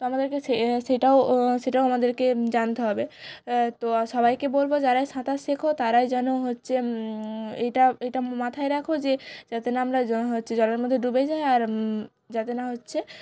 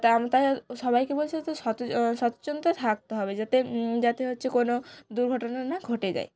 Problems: none marked